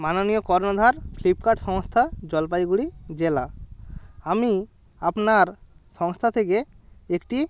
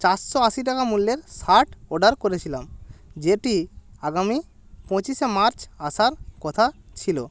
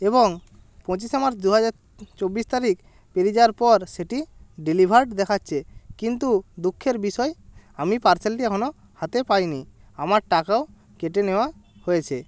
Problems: background sounds at intervals